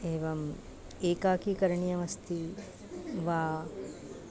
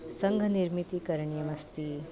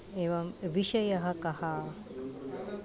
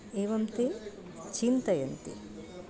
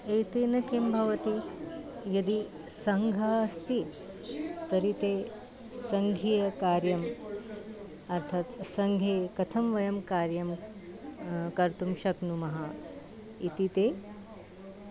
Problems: constant background noise